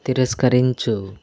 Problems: constant background noise